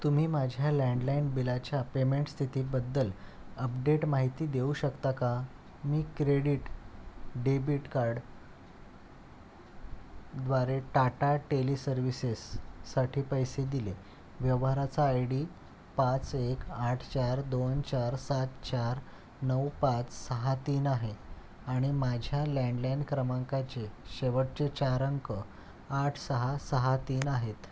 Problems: none marked